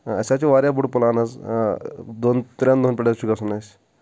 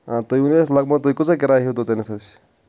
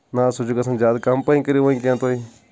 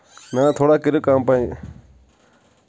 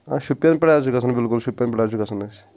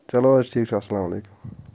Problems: none marked